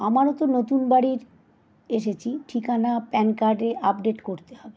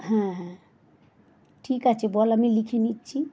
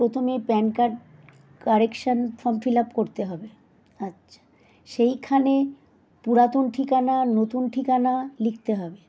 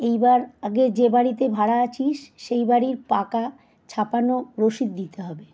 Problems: constant background noise